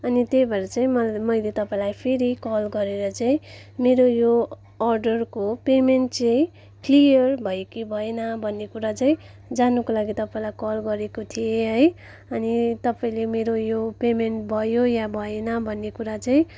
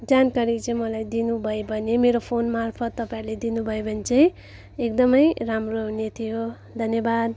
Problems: background conversations at intervals